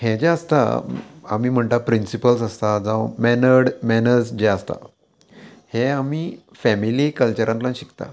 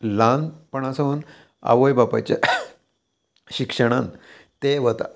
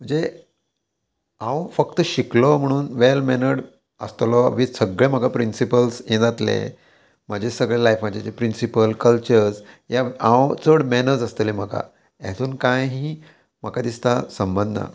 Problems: constant background noise